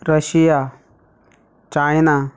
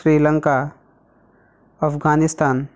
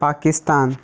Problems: background sounds at intervals